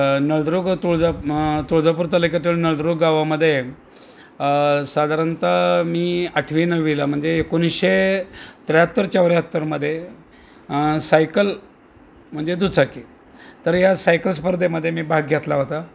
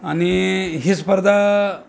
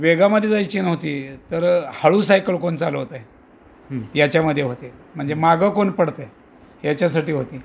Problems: constant background noise, background conversations at intervals